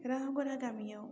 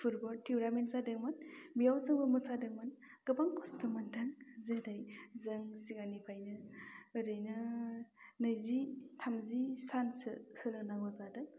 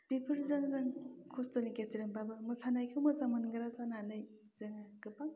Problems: low volume